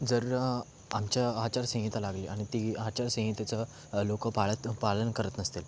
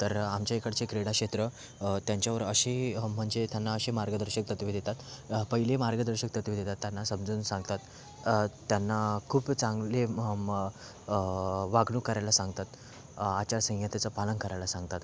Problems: background sounds at intervals